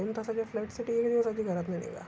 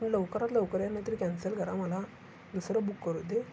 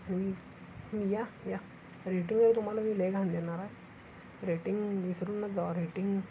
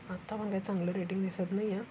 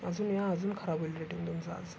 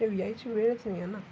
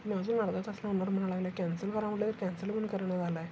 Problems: constant background noise